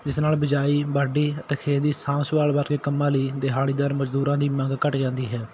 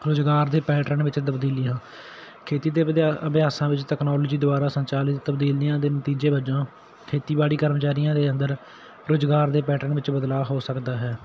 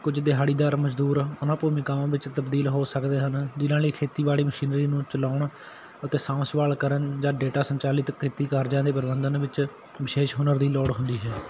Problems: none marked